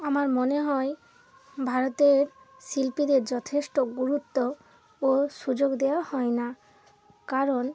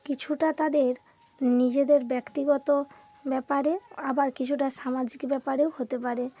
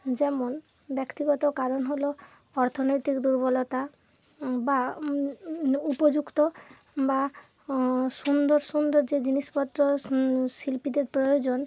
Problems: constant background noise